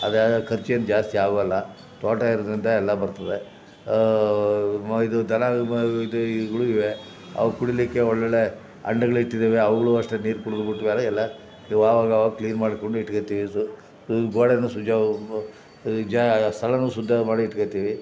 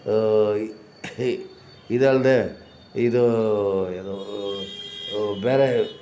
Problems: background sounds at intervals